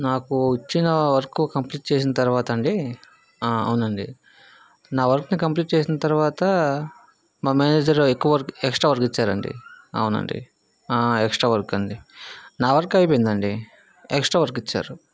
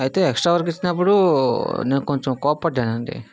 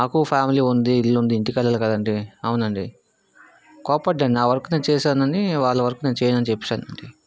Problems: background conversations at intervals